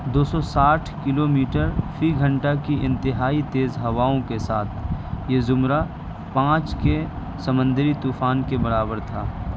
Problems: constant background noise